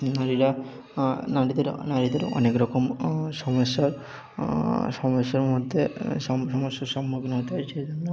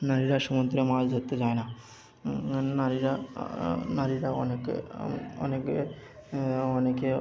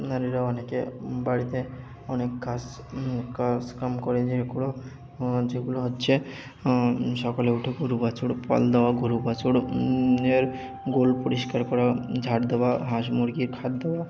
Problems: background sounds at intervals, continuous background conversations